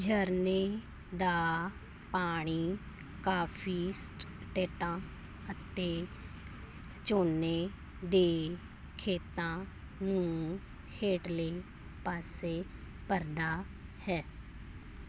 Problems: constant background noise